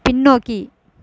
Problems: none marked